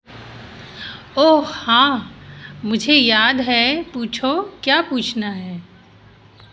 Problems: constant background noise